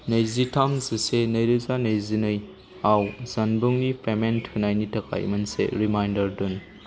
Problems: constant background noise